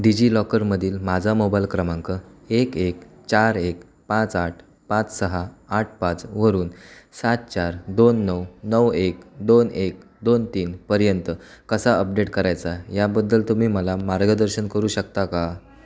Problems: constant background noise, background conversations at intervals